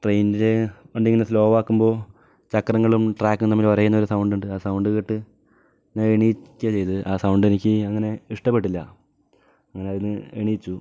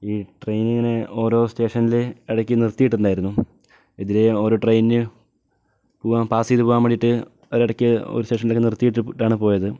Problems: none marked